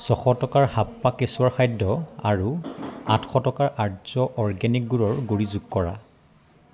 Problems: constant background noise